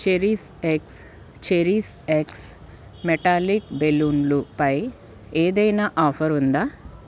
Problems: none marked